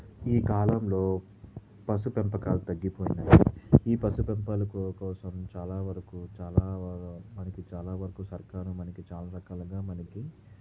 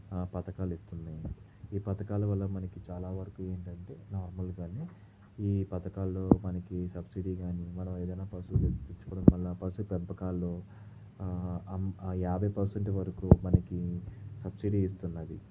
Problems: low volume